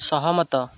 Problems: constant background noise